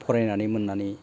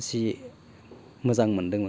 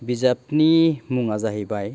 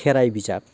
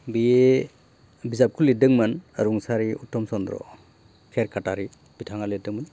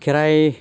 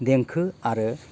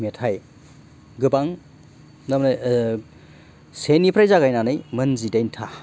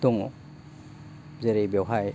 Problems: constant background noise